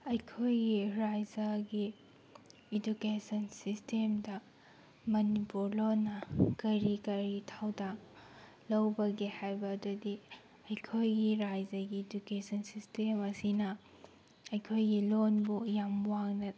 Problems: background sounds at intervals